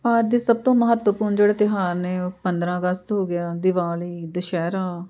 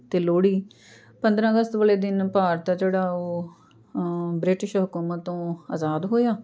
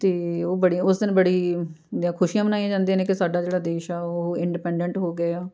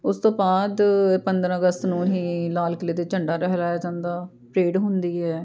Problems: background sounds at intervals, continuous background conversations